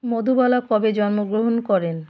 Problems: constant background noise